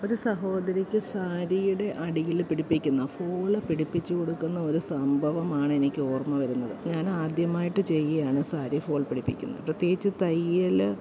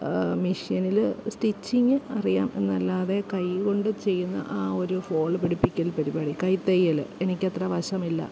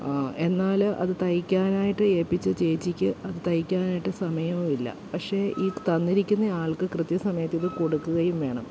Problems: background sounds at intervals